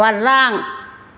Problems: none marked